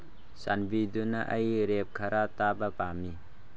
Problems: low volume